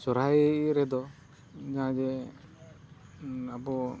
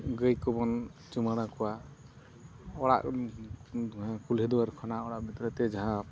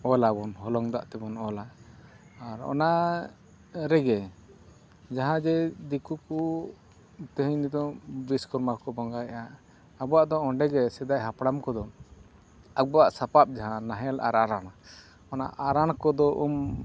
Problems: background sounds at intervals